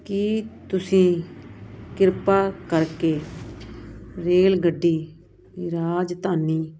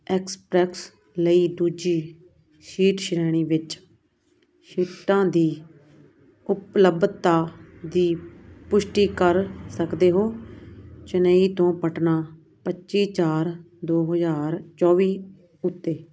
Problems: none marked